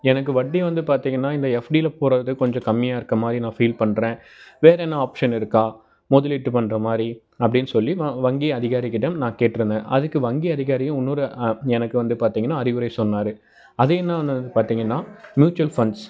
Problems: background sounds at intervals, background conversations at intervals